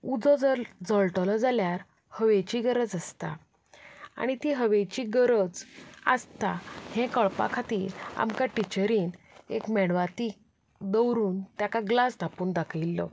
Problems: background sounds at intervals